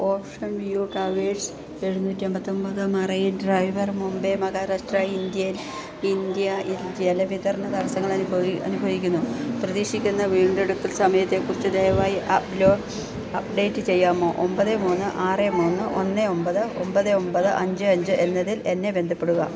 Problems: constant background noise